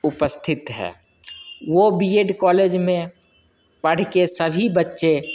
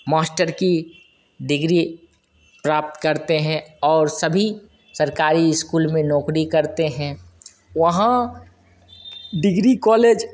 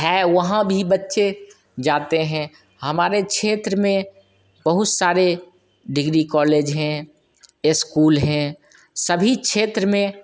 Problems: constant background noise, echo